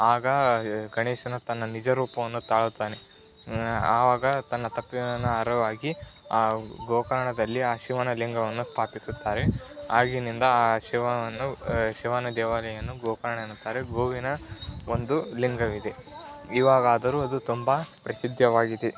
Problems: constant background noise